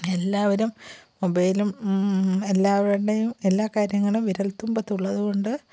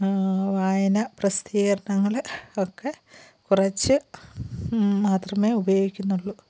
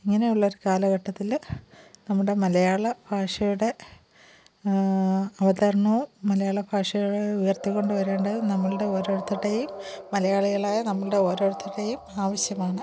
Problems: background sounds at intervals, low volume